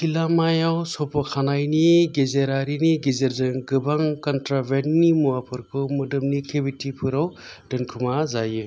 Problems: none marked